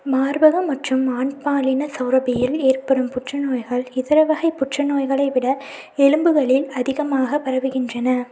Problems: none marked